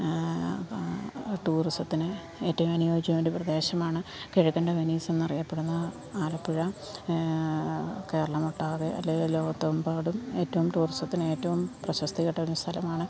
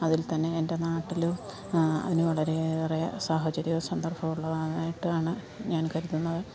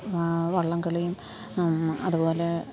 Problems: background sounds at intervals, background conversations at intervals, low volume